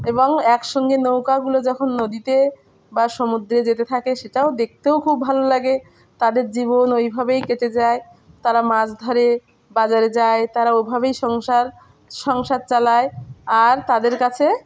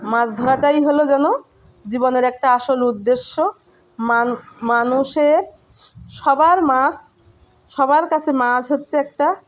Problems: none marked